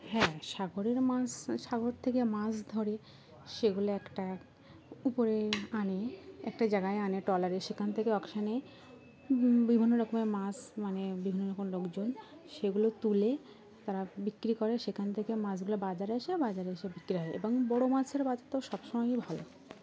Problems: constant background noise